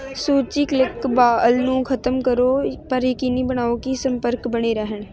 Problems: none marked